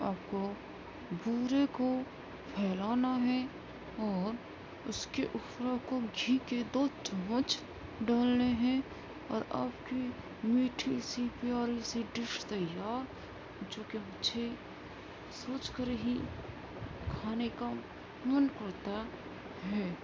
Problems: constant background noise